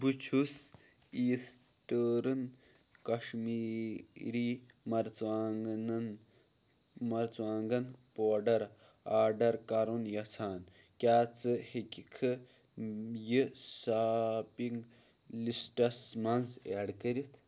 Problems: constant background noise